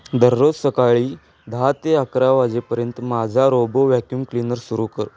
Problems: constant background noise